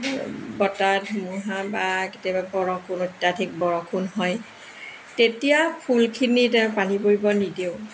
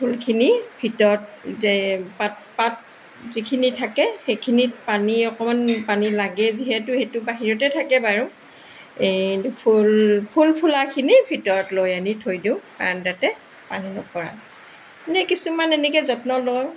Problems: constant background noise